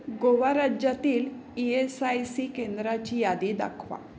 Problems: background sounds at intervals, background conversations at intervals